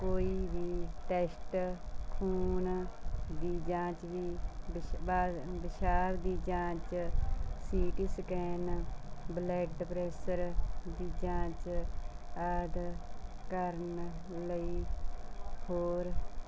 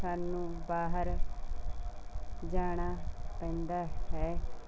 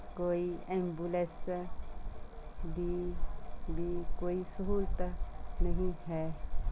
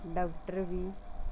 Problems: background sounds at intervals